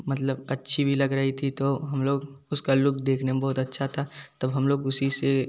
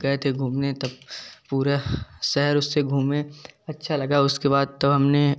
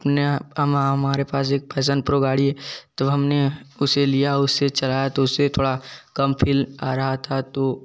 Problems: none marked